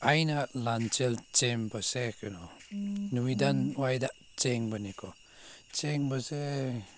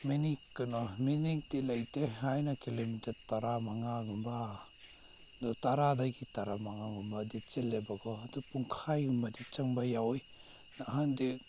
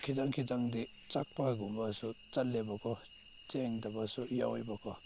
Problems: background sounds at intervals